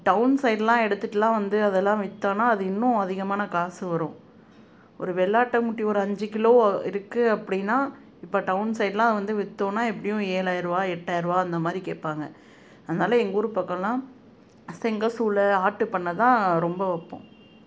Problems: none marked